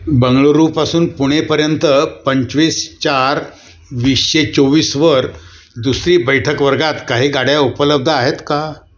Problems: background sounds at intervals